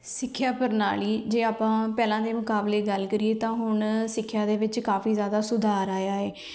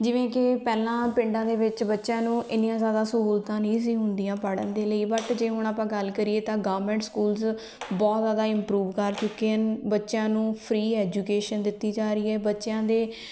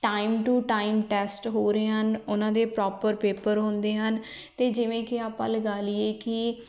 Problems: background sounds at intervals